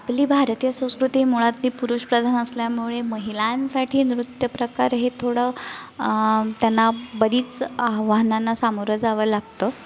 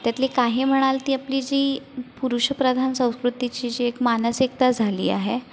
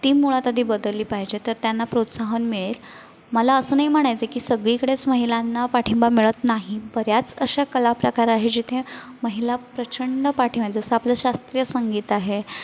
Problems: constant background noise, background conversations at intervals, echo